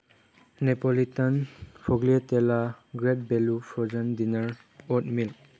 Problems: none marked